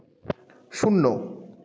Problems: background conversations at intervals